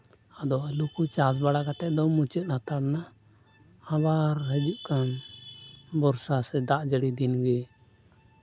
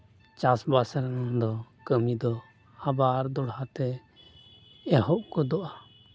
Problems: constant background noise